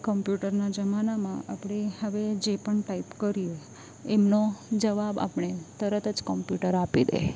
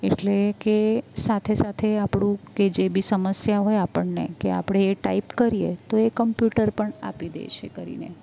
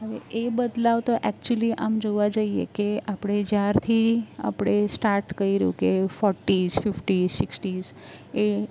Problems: none marked